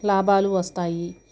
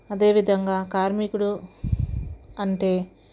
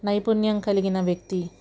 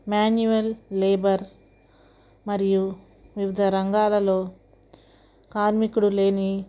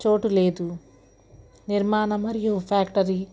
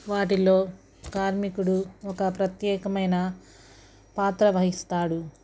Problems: none marked